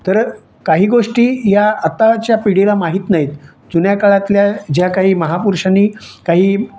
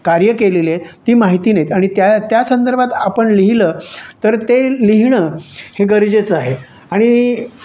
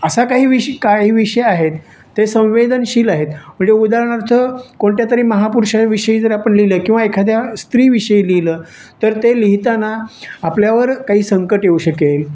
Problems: none marked